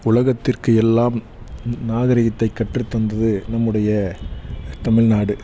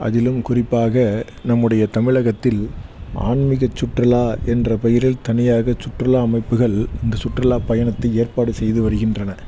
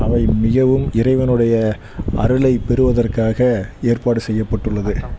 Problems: constant background noise